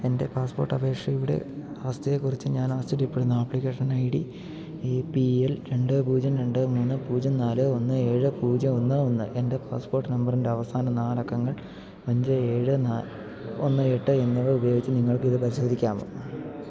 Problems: low volume